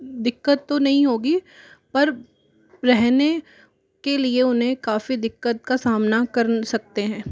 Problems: background sounds at intervals